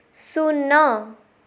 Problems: none marked